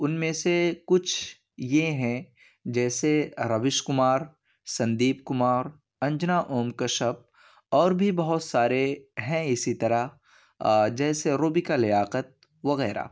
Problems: none marked